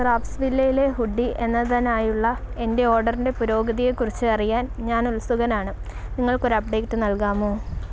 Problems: background sounds at intervals